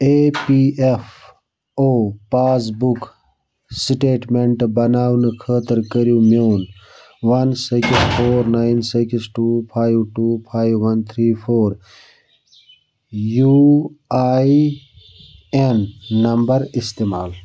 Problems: background sounds at intervals